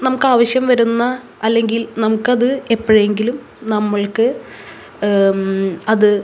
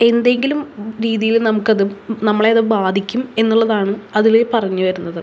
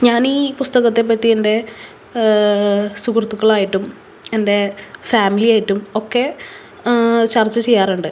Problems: background sounds at intervals